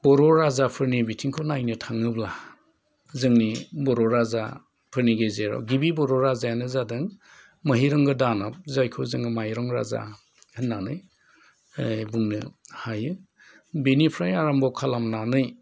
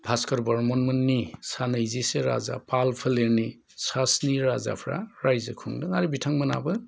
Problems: low volume